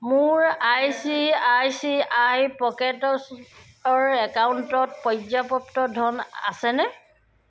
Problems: none marked